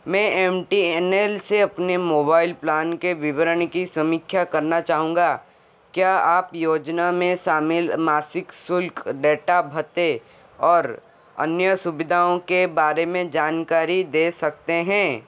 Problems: constant background noise